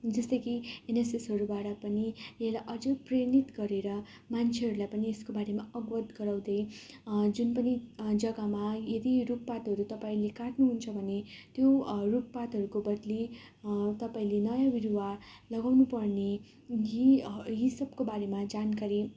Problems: none marked